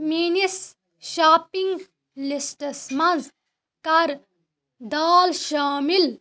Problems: background sounds at intervals